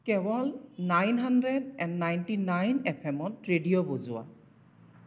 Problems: echo